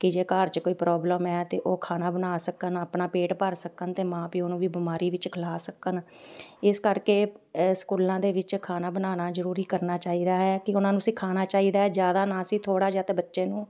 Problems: none marked